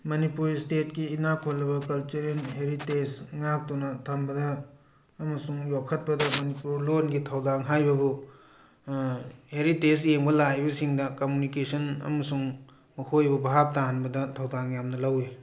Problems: background conversations at intervals